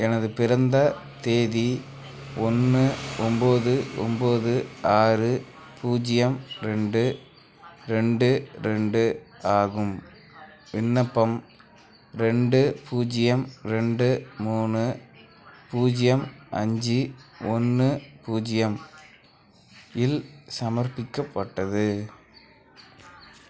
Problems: constant background noise, background conversations at intervals